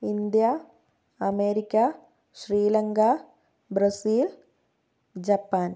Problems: none marked